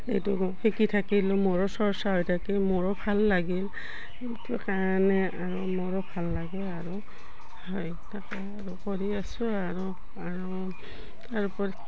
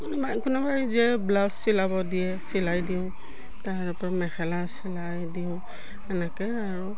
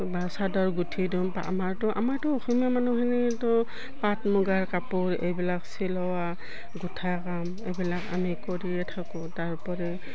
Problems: none marked